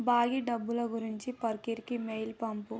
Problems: low volume